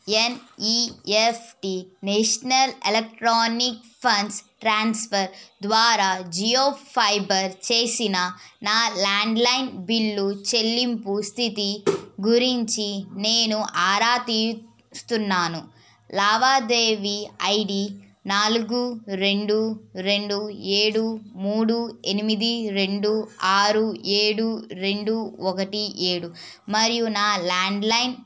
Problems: none marked